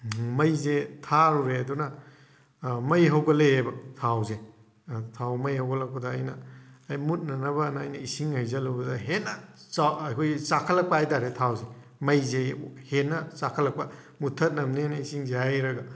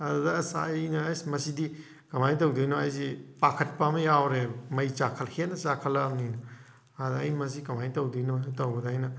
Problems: none marked